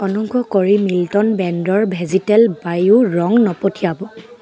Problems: continuous background conversations